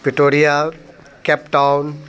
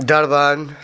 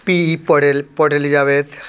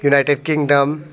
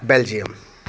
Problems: constant background noise, continuous background conversations